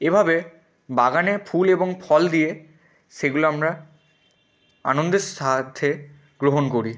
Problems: background sounds at intervals